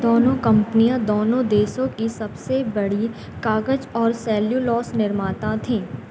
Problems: none marked